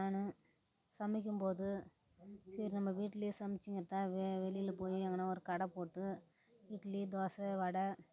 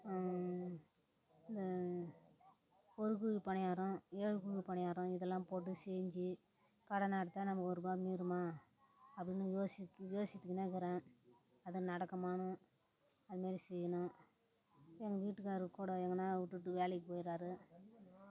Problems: constant background noise, low volume